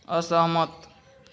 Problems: constant background noise, background conversations at intervals